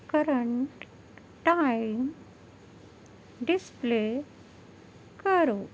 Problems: none marked